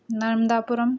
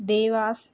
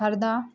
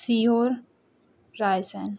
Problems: background sounds at intervals